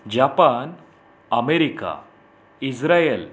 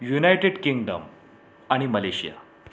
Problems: none marked